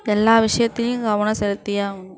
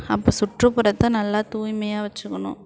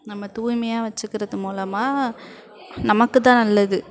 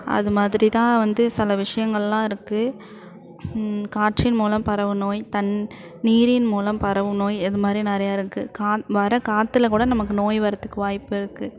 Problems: background conversations at intervals